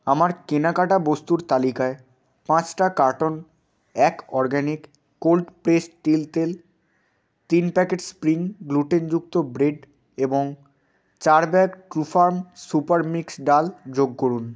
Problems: constant background noise